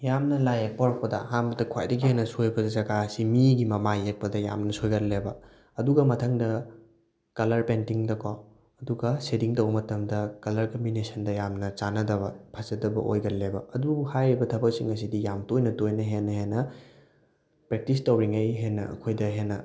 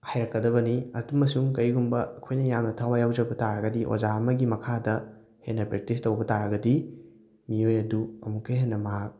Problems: none marked